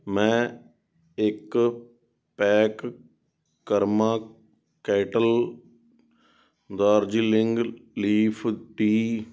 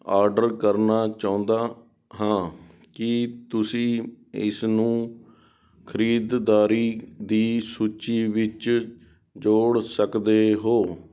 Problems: background sounds at intervals